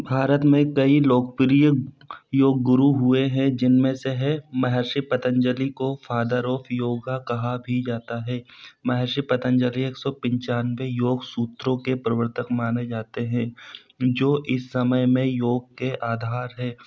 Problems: constant background noise